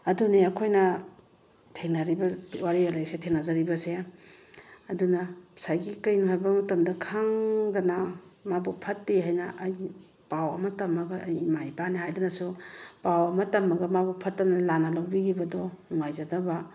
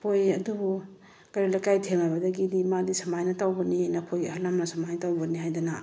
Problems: none marked